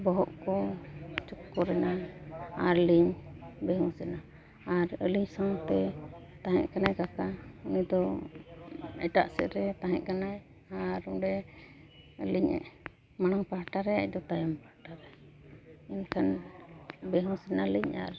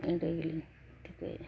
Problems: background sounds at intervals, continuous background conversations